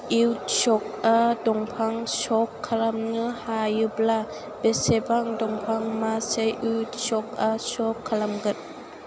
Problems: constant background noise